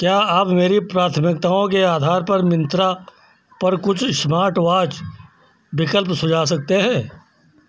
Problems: none marked